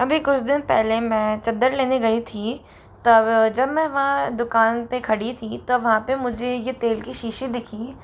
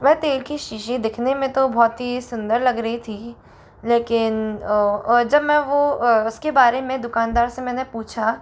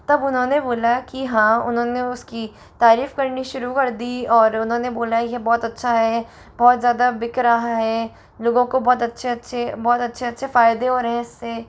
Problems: none marked